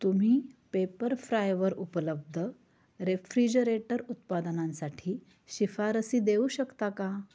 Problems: none marked